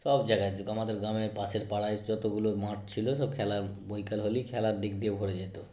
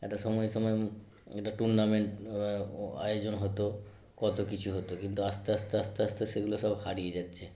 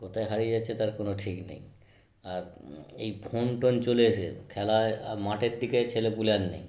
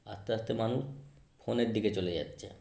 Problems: none marked